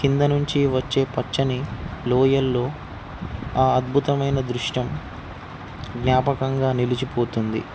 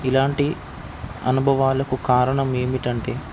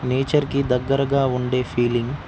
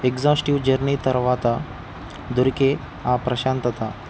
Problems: none marked